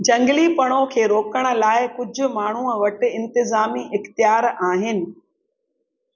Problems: echo